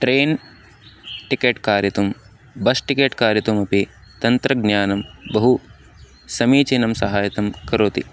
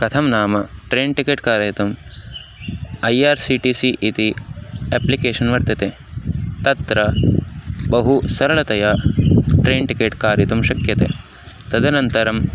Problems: constant background noise